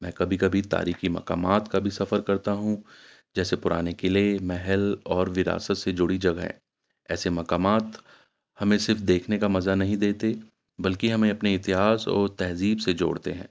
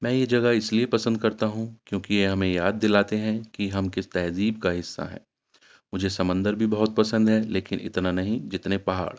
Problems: constant background noise